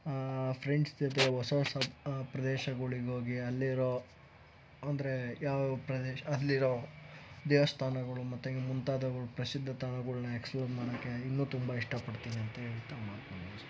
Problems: background sounds at intervals